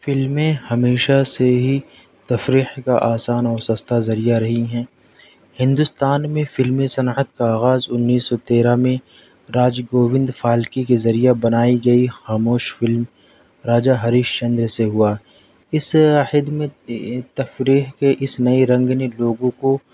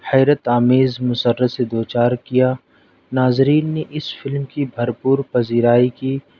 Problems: none marked